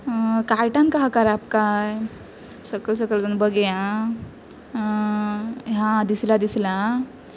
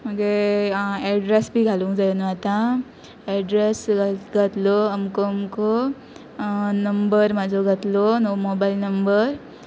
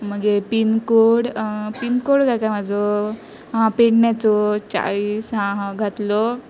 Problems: constant background noise